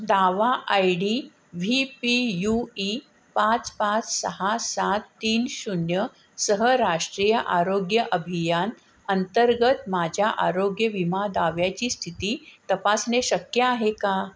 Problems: constant background noise